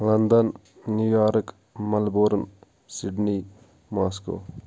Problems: none marked